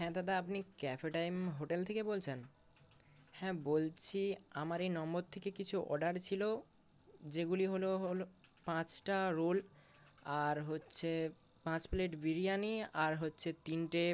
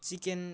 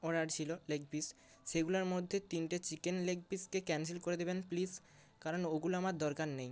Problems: none marked